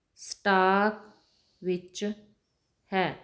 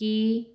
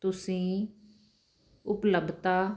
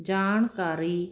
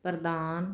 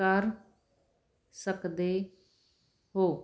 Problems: none marked